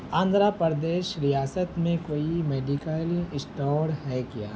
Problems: constant background noise